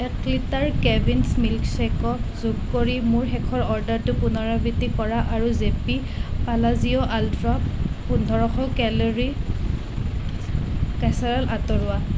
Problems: constant background noise